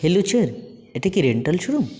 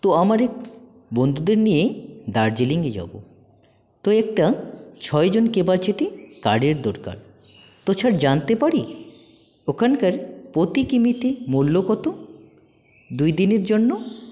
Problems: none marked